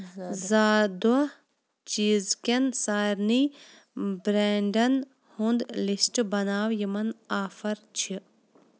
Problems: background conversations at intervals